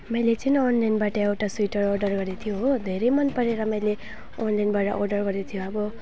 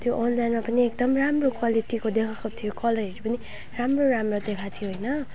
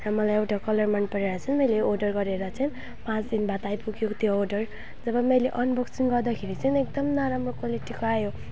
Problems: none marked